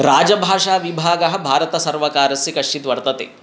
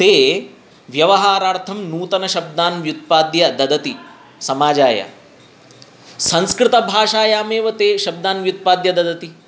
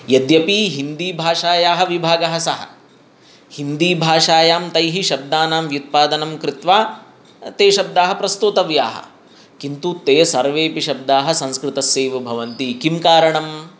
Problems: none marked